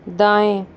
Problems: none marked